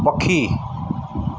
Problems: constant background noise, echo